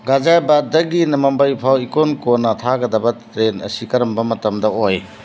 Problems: constant background noise